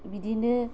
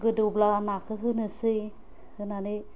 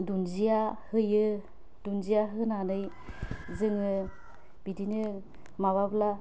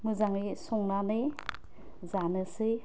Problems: constant background noise